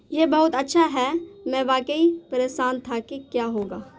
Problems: constant background noise